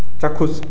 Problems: none marked